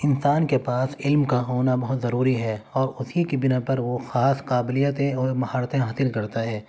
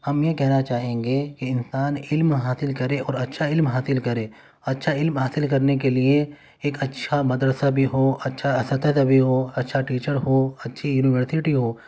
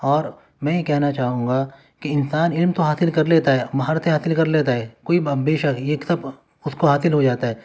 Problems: none marked